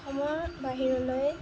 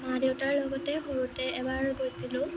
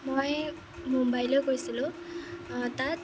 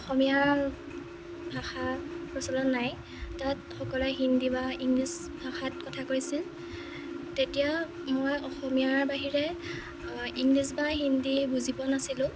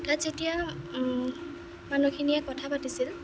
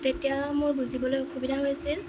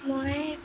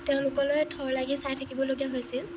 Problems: constant background noise